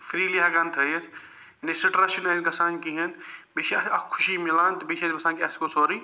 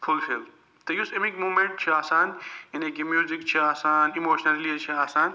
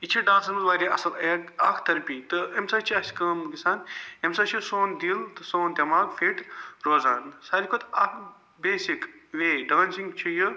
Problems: background sounds at intervals